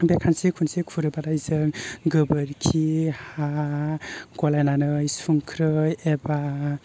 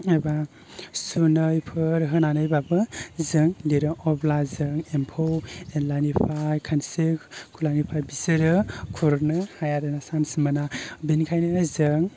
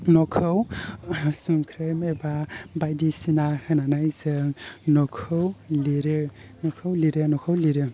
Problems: low volume